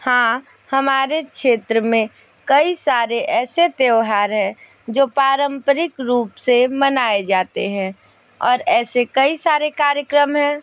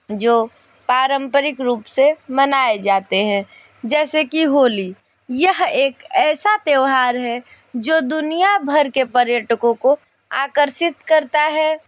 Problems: none marked